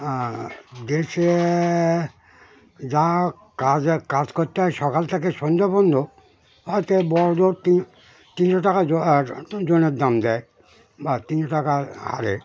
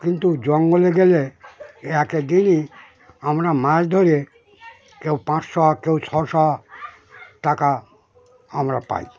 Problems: constant background noise, continuous background conversations